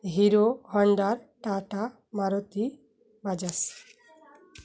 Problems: none marked